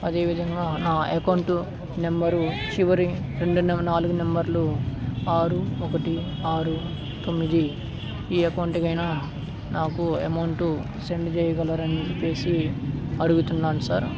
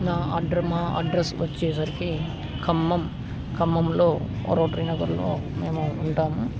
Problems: constant background noise